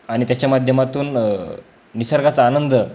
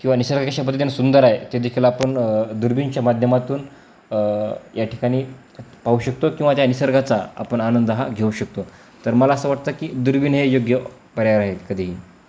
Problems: constant background noise